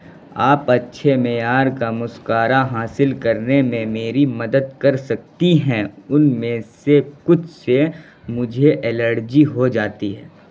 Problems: constant background noise